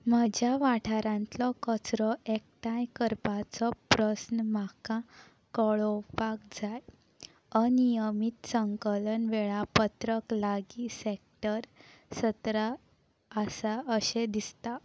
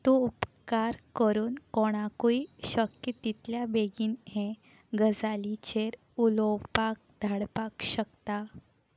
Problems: none marked